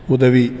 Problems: constant background noise